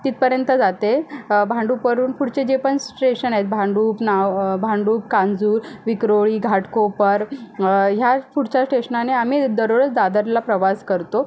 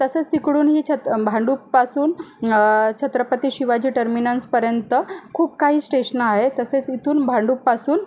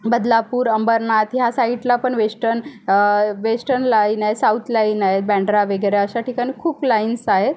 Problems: none marked